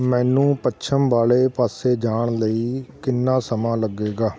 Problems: continuous background conversations